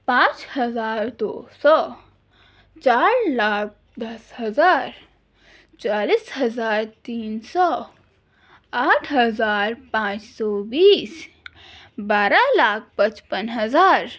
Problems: none marked